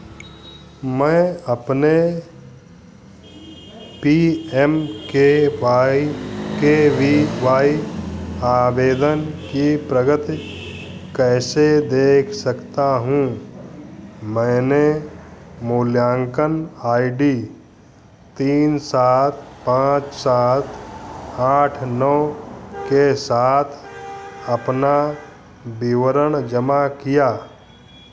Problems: constant background noise